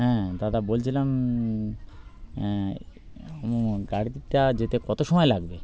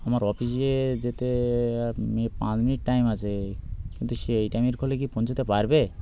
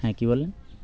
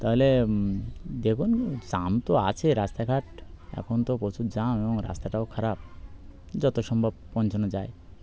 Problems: constant background noise